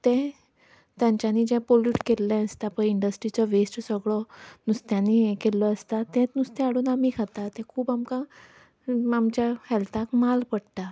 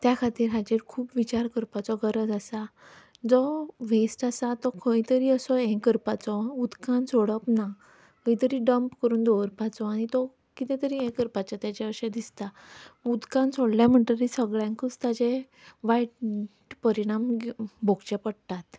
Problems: background sounds at intervals